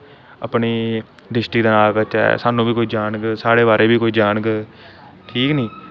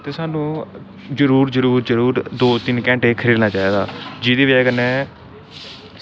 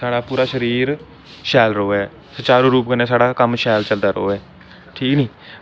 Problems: constant background noise